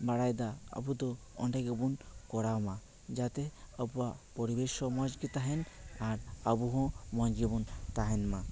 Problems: none marked